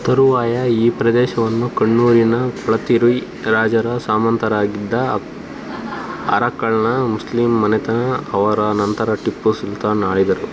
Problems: constant background noise